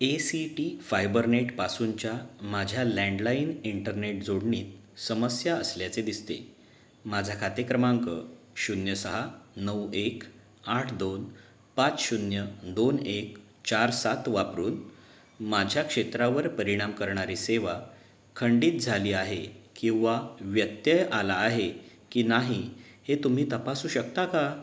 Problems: none marked